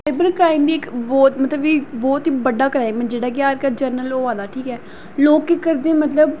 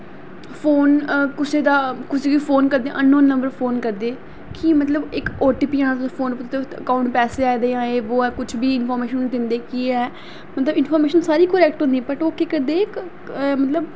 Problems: constant background noise